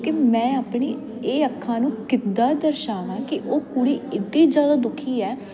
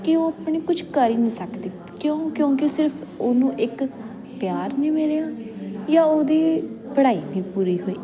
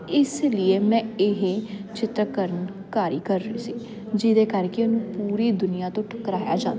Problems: constant background noise